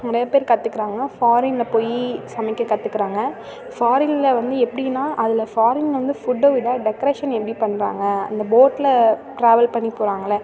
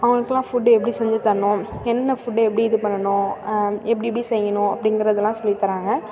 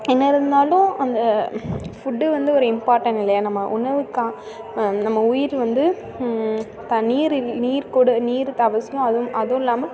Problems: constant background noise, continuous background conversations